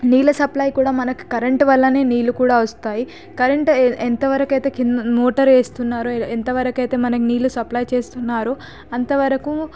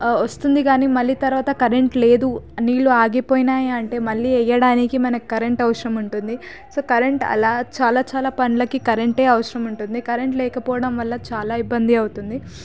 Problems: constant background noise